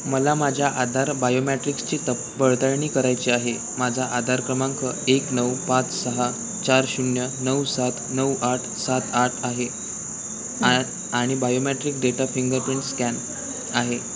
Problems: constant background noise, background conversations at intervals